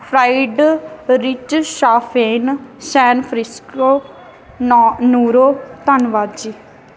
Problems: background sounds at intervals